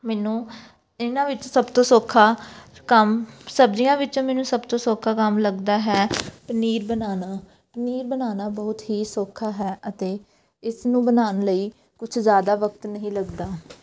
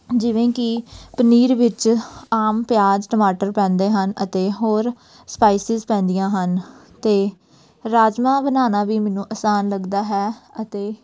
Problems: background sounds at intervals, background conversations at intervals